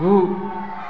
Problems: constant background noise